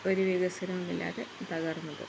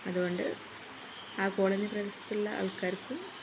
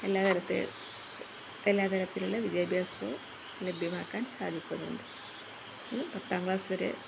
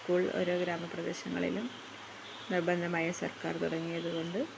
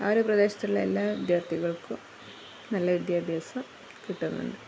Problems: constant background noise, low volume